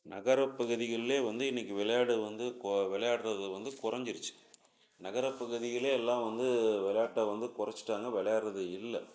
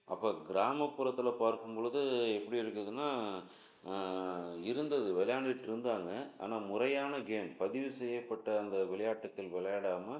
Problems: low volume